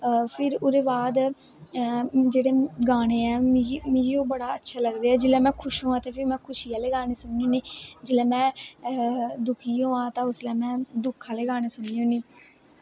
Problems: constant background noise, background conversations at intervals